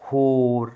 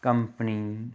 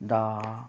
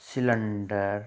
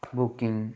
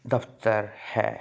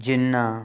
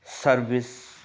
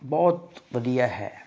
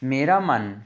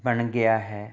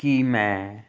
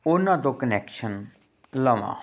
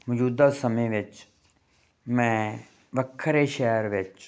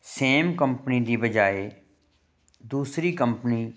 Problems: none marked